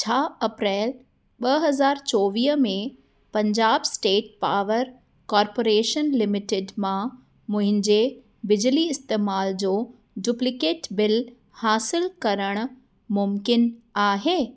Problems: none marked